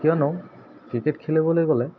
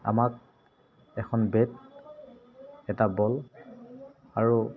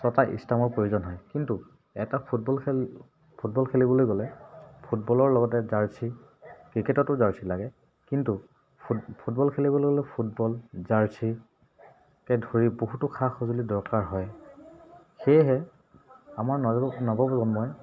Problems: background sounds at intervals